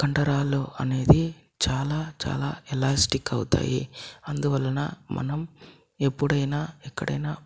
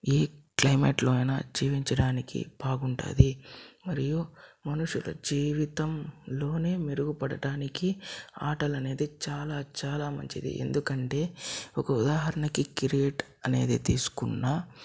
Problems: none marked